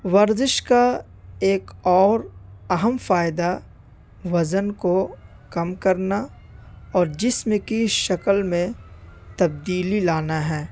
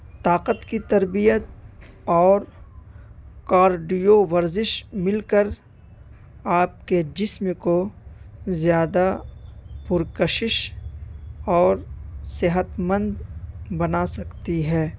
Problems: constant background noise